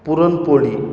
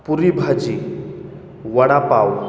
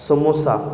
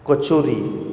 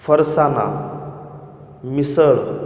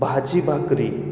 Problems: none marked